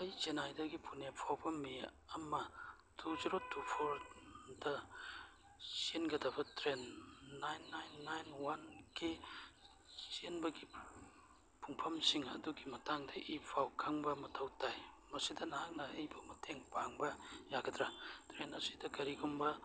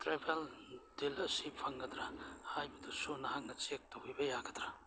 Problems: background sounds at intervals